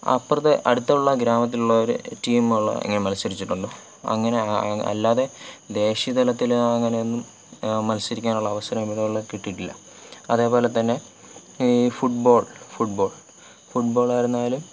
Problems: none marked